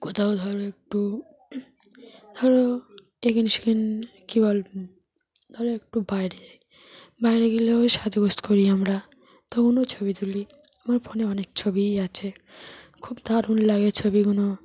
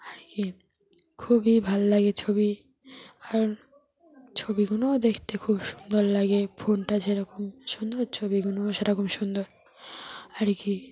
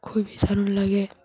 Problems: continuous background conversations